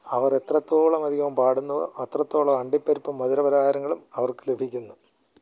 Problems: low volume